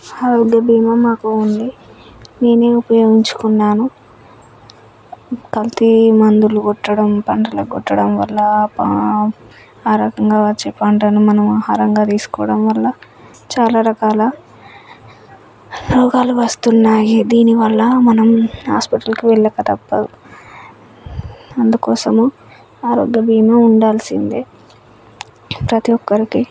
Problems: none marked